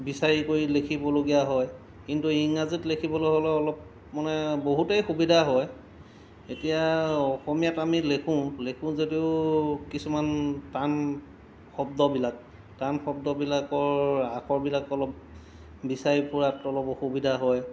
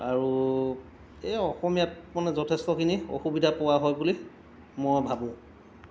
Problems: constant background noise